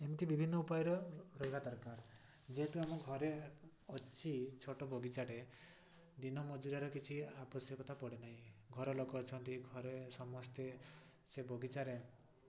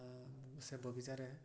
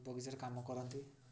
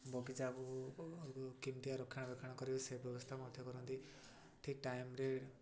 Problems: none marked